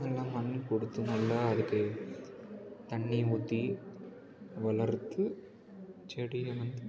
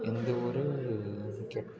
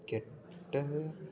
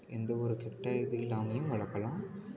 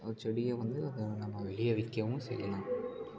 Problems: low volume